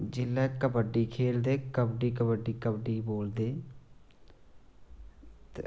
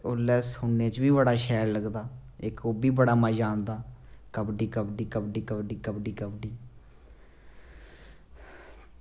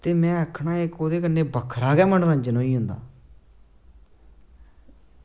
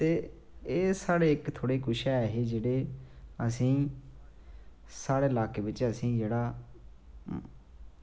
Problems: low volume